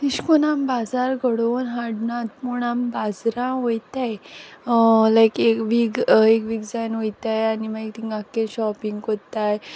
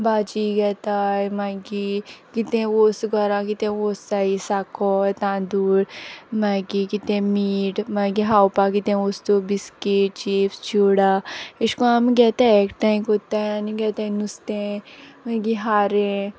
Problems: background conversations at intervals